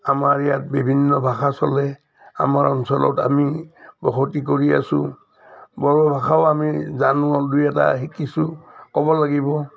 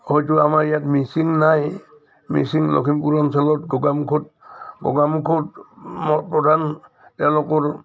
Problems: none marked